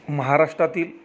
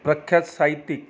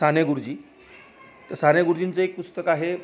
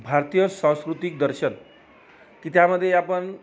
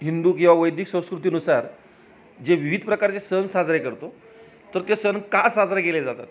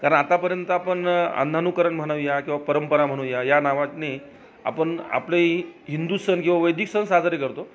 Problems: background sounds at intervals, background conversations at intervals